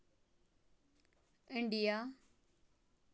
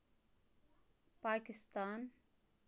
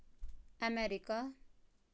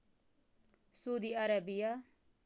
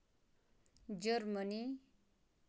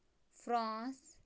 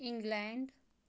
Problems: background sounds at intervals, low volume